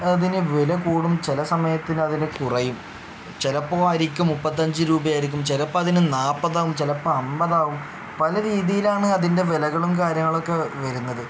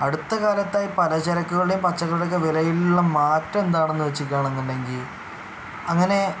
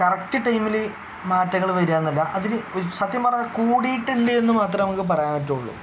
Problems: none marked